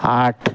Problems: constant background noise